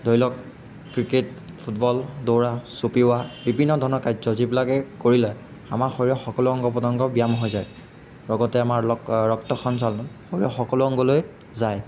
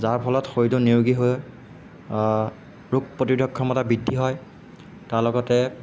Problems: background sounds at intervals